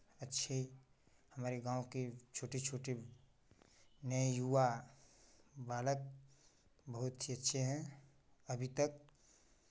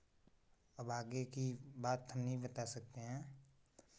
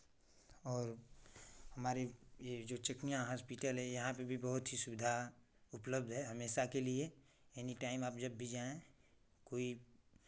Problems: none marked